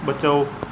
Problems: none marked